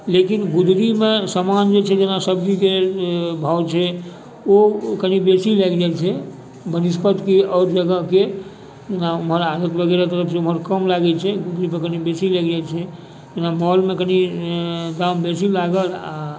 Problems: background sounds at intervals, background conversations at intervals